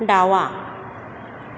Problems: background sounds at intervals